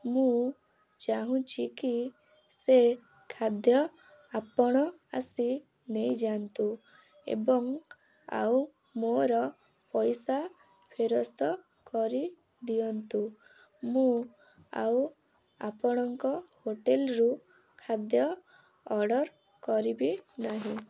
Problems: none marked